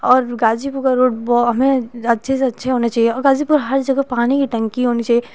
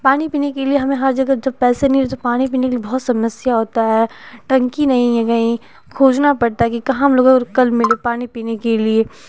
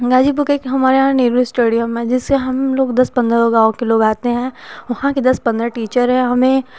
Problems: constant background noise